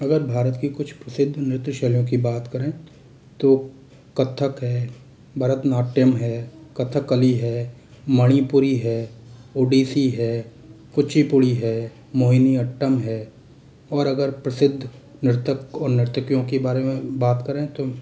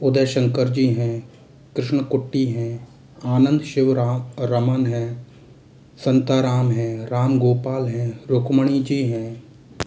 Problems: constant background noise